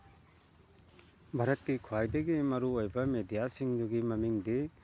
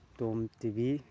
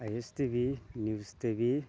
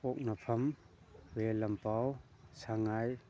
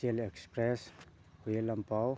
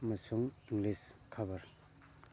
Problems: constant background noise